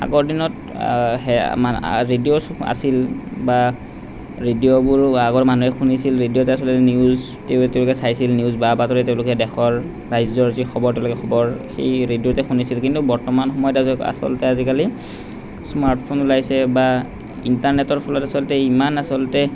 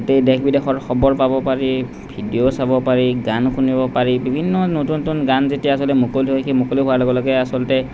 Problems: none marked